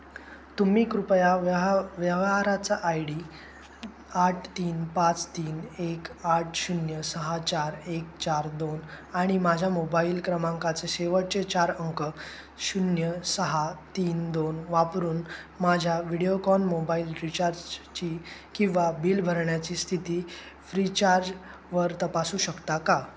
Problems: none marked